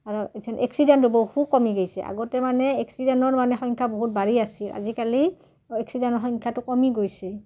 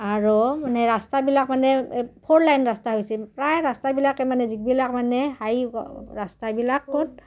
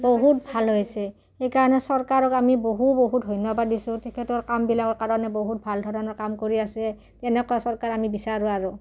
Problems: none marked